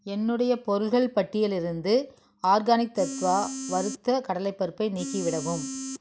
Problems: constant background noise